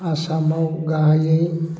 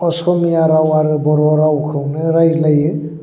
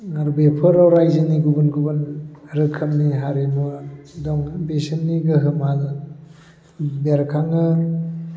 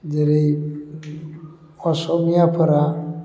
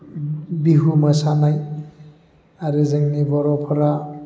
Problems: constant background noise